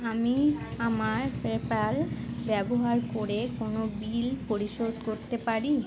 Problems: constant background noise